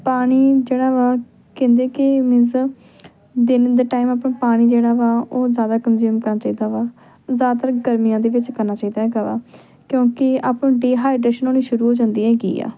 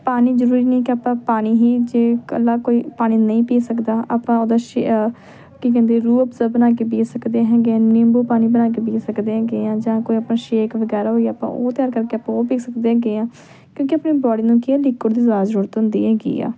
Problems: background conversations at intervals